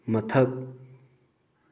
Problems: none marked